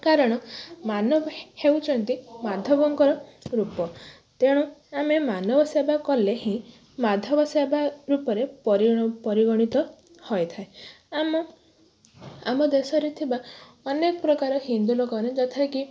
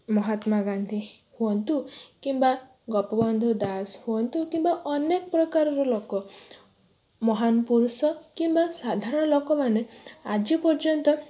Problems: none marked